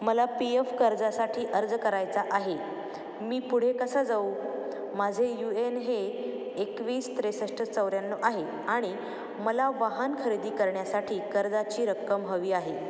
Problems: none marked